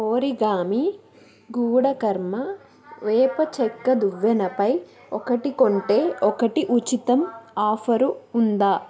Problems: continuous background conversations